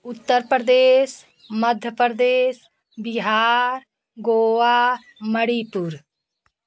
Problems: constant background noise